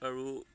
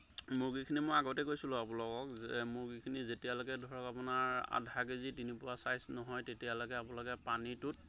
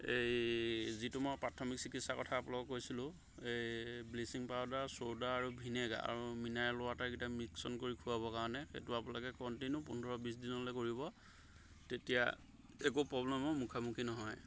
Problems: constant background noise